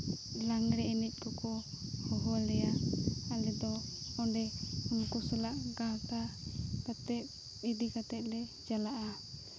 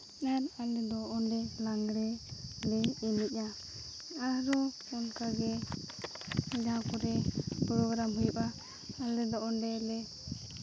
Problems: constant background noise